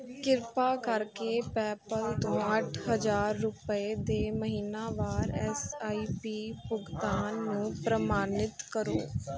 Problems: continuous background conversations